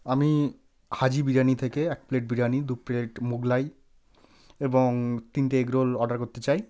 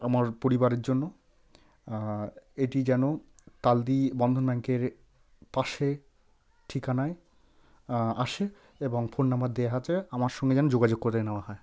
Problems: none marked